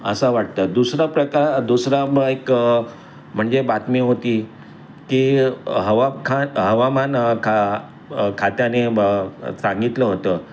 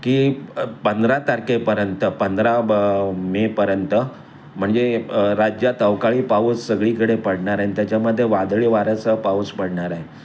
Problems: constant background noise, background conversations at intervals